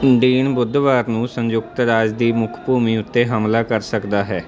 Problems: constant background noise